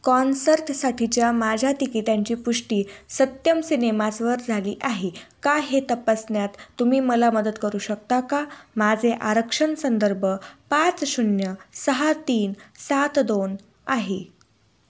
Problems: background sounds at intervals